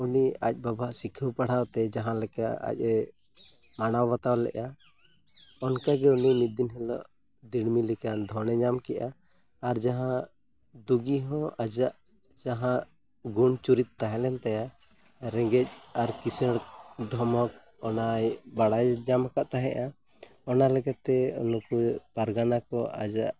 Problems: background sounds at intervals